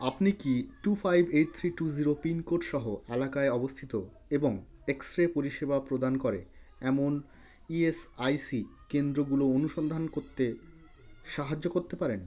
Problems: background conversations at intervals